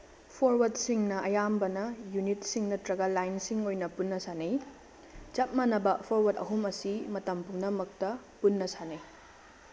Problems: constant background noise, low volume